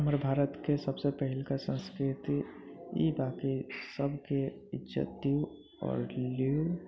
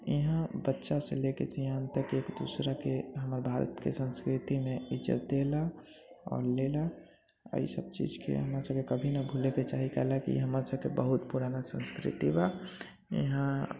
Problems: constant background noise, low volume